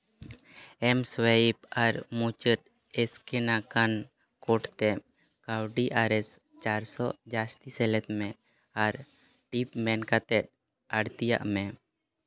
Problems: background sounds at intervals